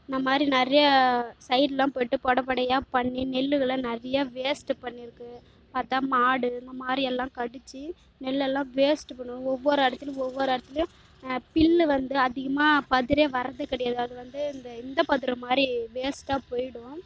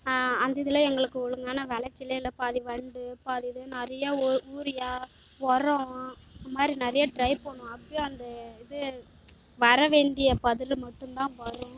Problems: low volume